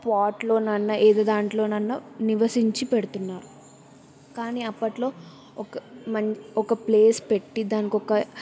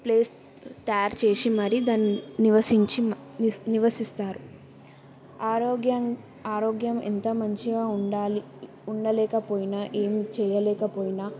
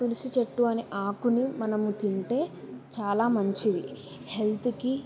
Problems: background sounds at intervals